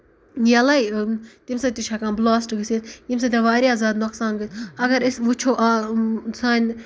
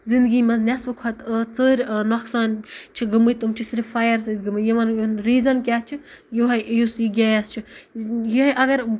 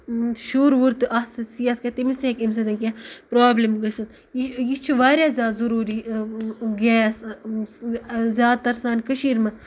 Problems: none marked